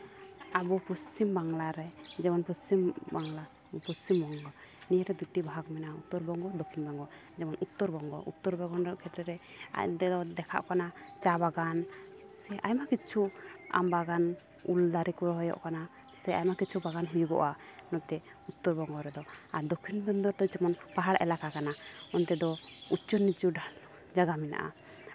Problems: constant background noise